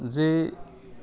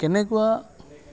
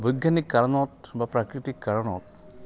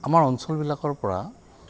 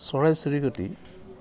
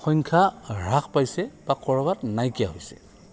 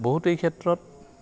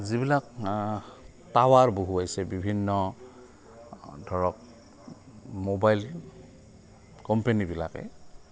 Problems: constant background noise, continuous background conversations